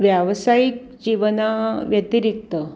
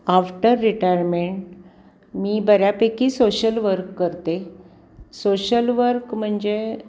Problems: constant background noise, background conversations at intervals